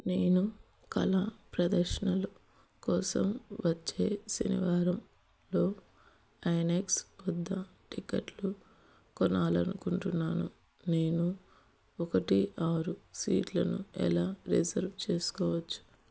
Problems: none marked